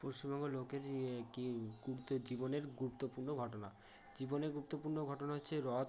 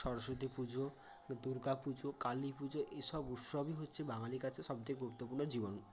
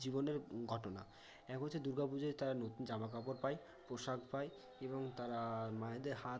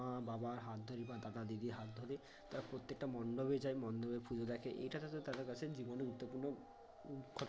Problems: none marked